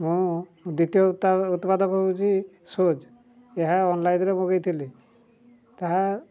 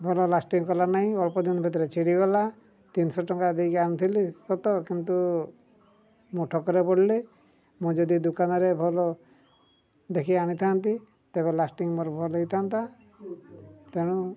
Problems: low volume